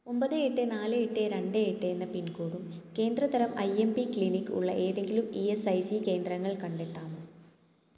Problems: echo, low volume